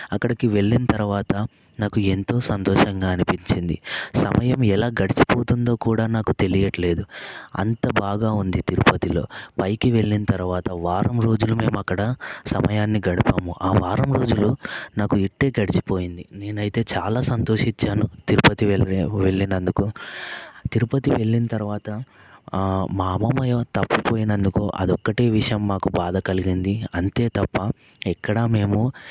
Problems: constant background noise